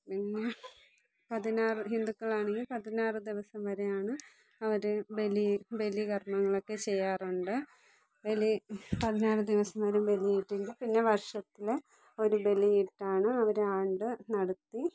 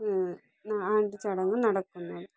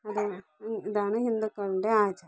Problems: low volume